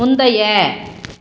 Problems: none marked